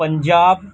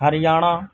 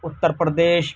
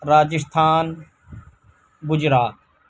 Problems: constant background noise, low volume